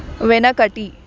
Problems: background conversations at intervals